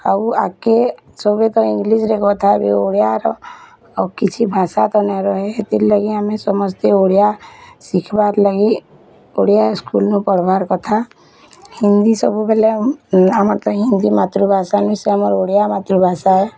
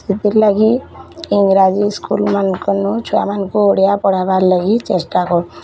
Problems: constant background noise, continuous background conversations